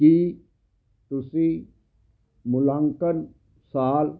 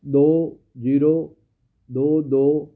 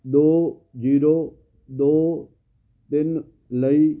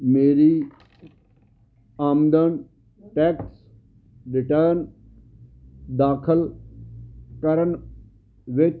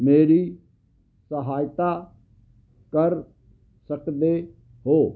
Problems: constant background noise